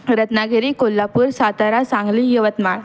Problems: background sounds at intervals